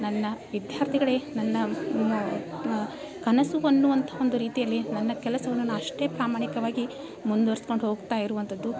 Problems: background sounds at intervals